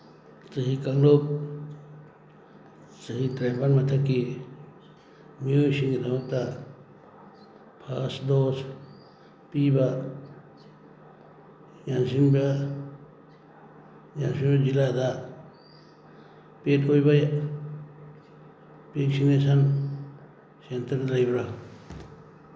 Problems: constant background noise